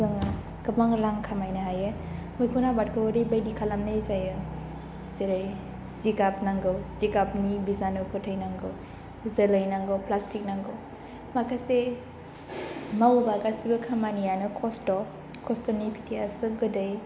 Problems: low volume